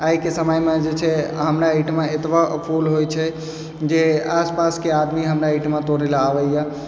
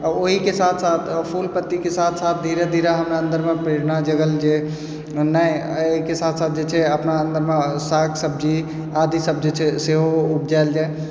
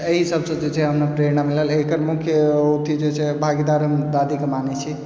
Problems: background sounds at intervals